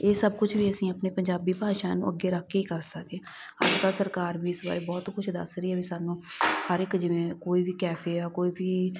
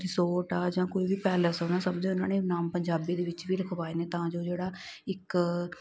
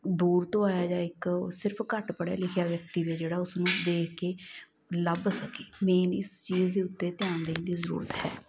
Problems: none marked